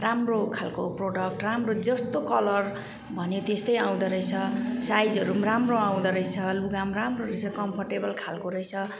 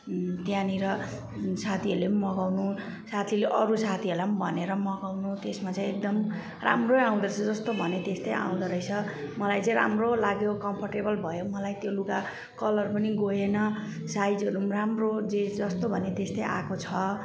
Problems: background sounds at intervals